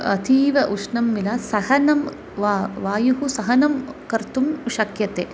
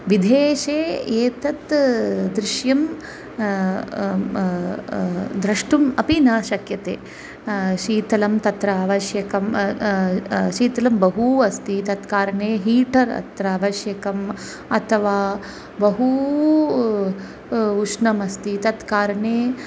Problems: none marked